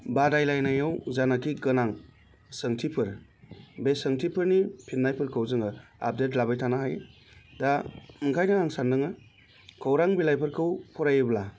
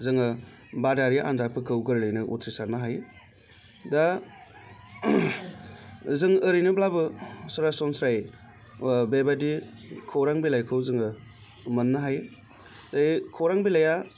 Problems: constant background noise